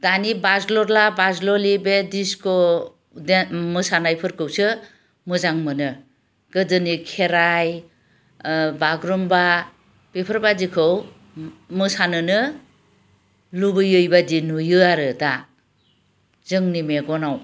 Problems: none marked